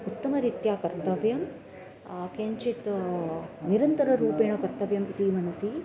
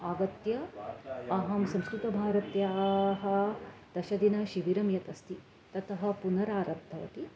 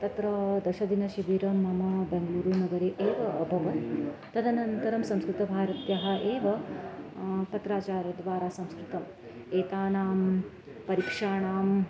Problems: none marked